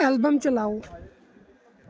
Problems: constant background noise